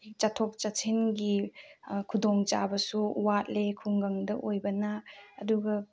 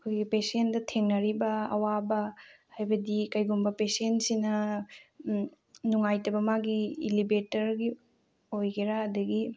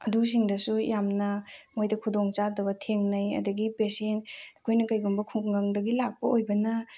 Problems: low volume